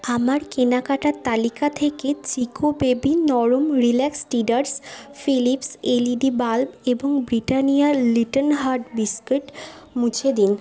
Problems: constant background noise, continuous background conversations